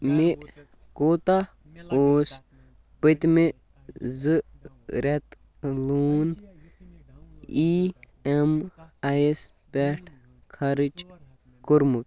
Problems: background sounds at intervals, background conversations at intervals